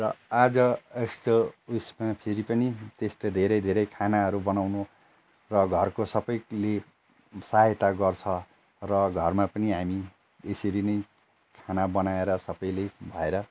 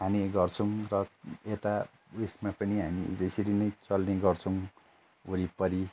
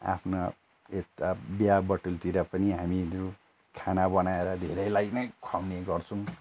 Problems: constant background noise